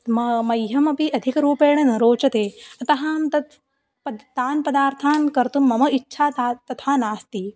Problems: none marked